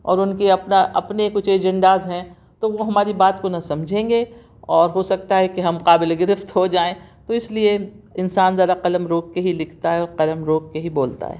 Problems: none marked